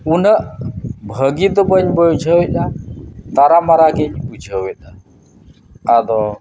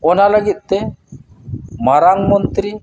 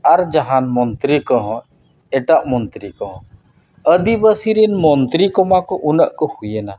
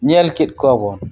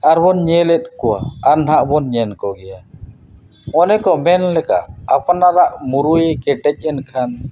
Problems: background sounds at intervals